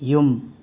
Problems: none marked